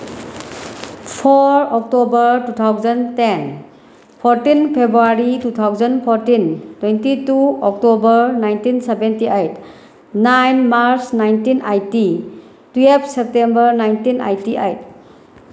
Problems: constant background noise